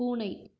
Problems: low volume